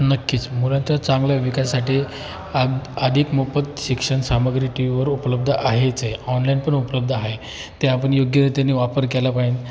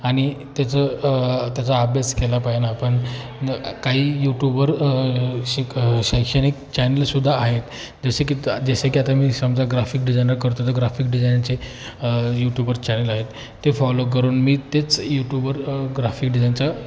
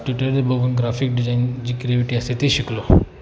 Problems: constant background noise, continuous background conversations